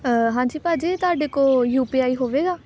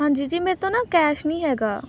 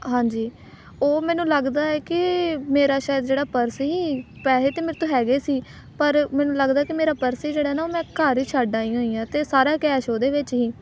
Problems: none marked